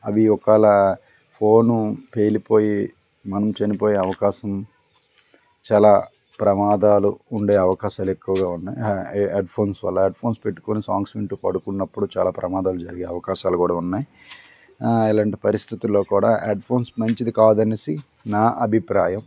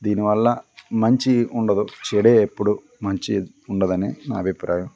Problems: background conversations at intervals